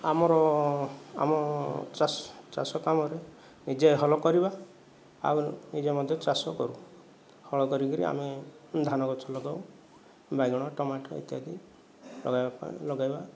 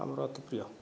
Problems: background sounds at intervals